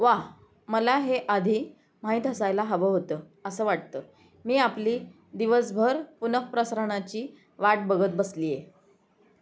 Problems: background sounds at intervals, background conversations at intervals